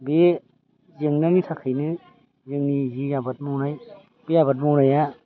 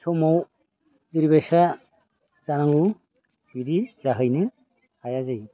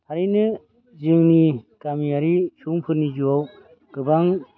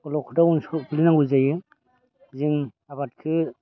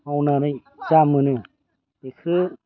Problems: constant background noise